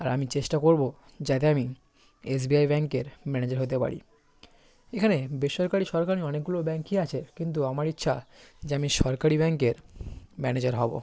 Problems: constant background noise